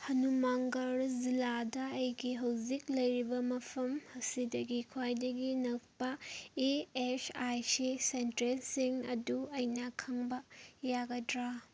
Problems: background sounds at intervals